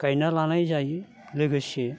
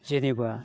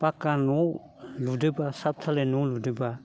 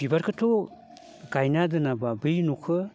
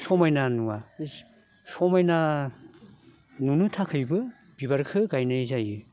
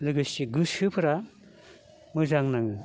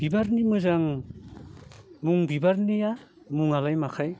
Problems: none marked